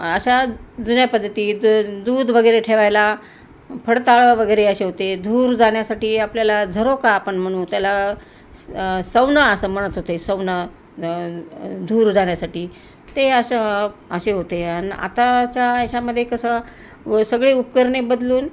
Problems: constant background noise